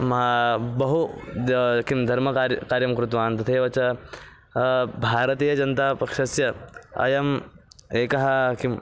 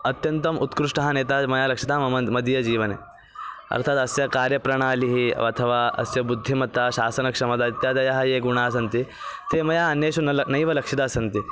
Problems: constant background noise